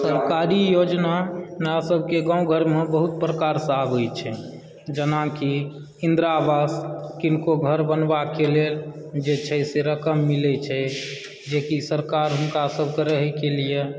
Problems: background sounds at intervals, background conversations at intervals